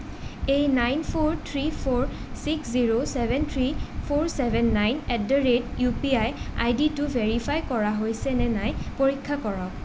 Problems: constant background noise